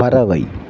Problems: constant background noise